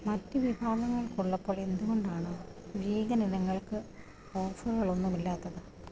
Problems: low volume